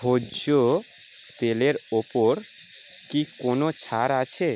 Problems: constant background noise